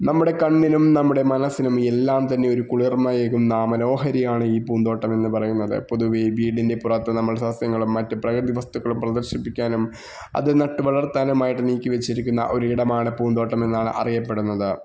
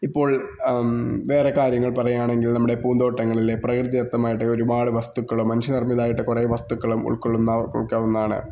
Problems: background sounds at intervals